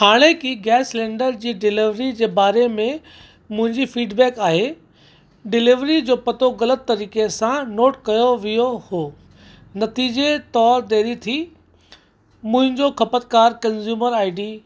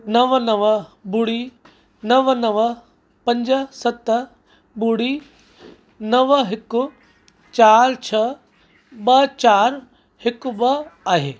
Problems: constant background noise